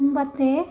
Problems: none marked